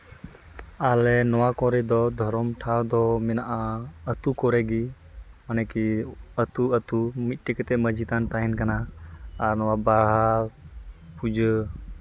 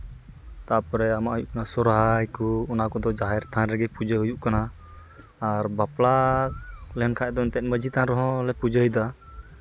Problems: constant background noise